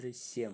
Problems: low volume